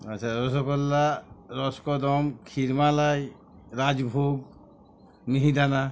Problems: constant background noise, continuous background conversations